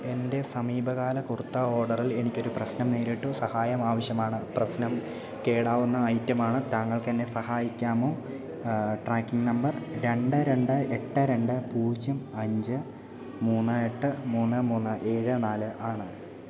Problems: low volume